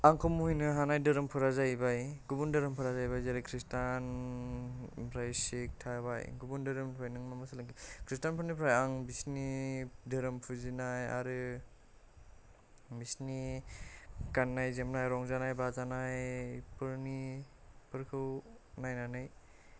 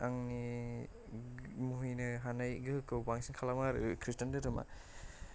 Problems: low volume